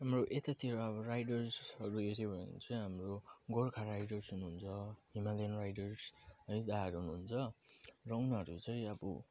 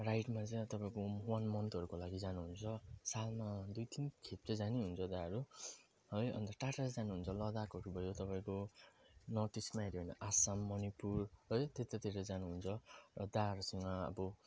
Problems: low volume